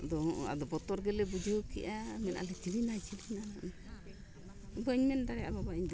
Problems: constant background noise, background conversations at intervals